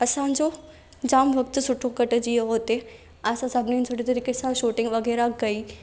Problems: none marked